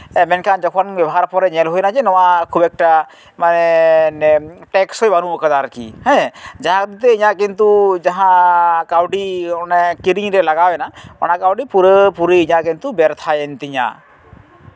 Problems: background sounds at intervals